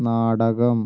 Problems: none marked